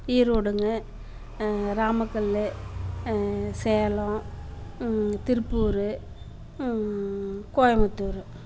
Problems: constant background noise